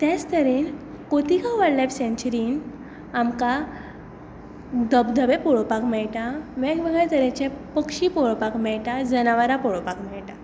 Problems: echo